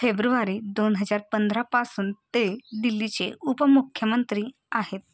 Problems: constant background noise